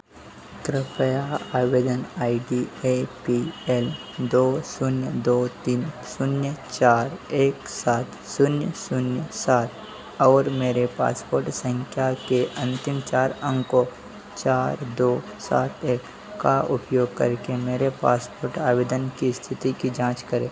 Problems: none marked